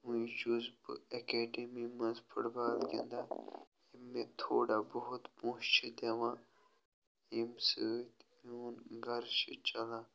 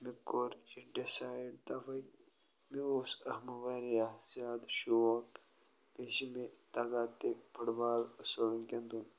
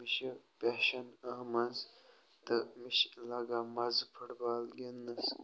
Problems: background sounds at intervals